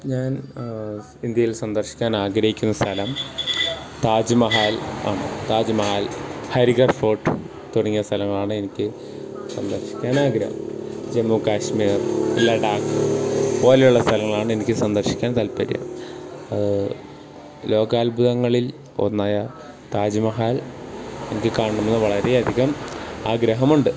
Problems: background sounds at intervals